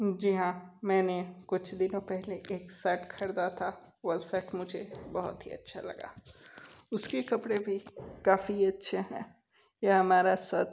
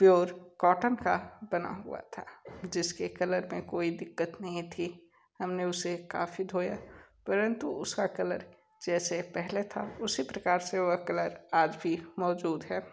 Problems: constant background noise